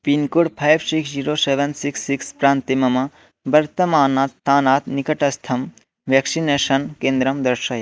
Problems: none marked